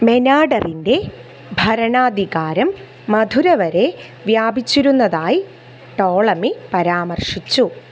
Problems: background sounds at intervals